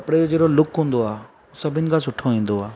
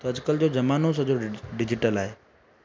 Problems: constant background noise